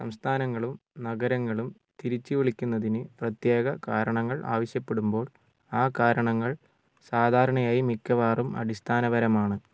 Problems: low volume